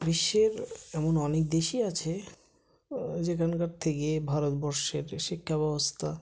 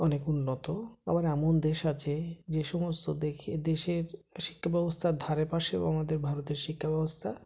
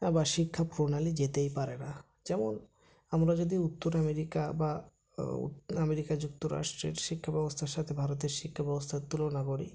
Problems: none marked